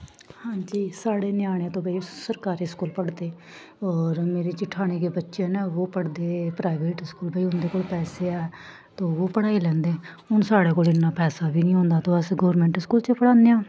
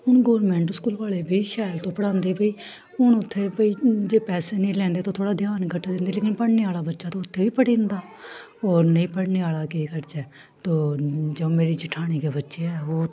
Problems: none marked